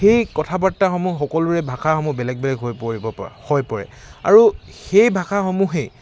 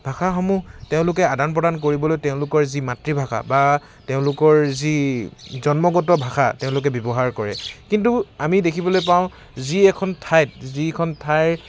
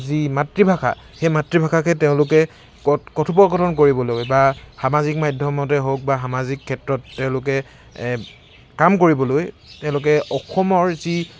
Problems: constant background noise